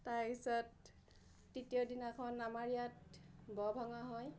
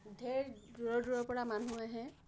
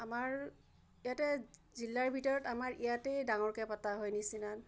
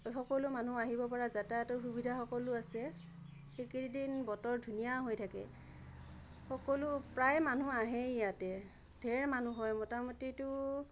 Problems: low volume